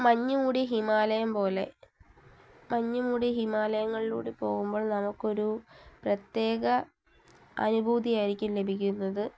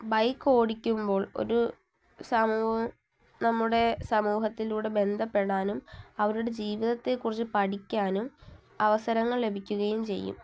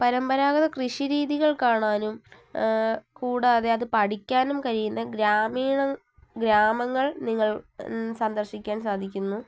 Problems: low volume